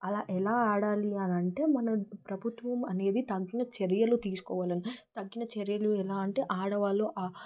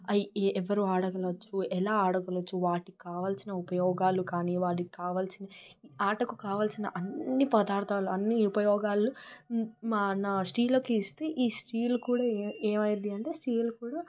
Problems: background sounds at intervals